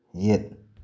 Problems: none marked